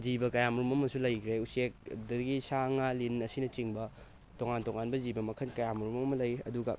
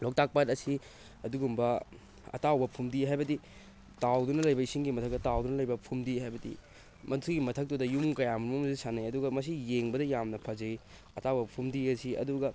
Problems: constant background noise